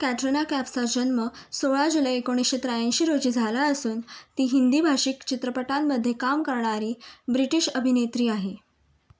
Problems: background sounds at intervals